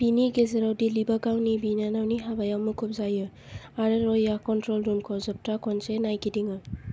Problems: low volume